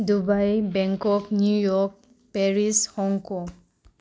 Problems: low volume